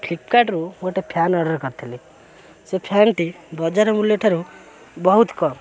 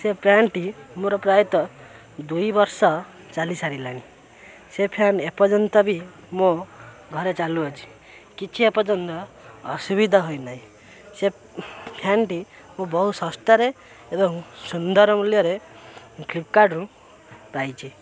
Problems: constant background noise, continuous background conversations